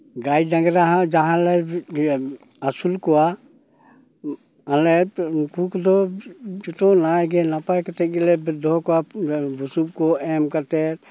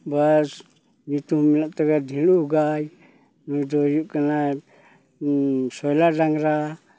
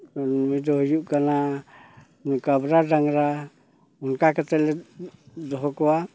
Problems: none marked